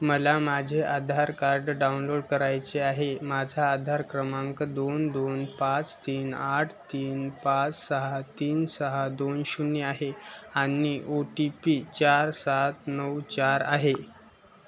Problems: none marked